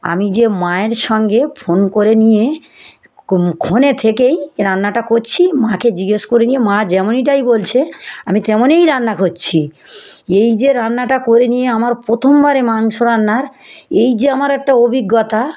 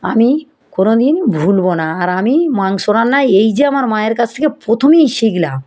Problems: none marked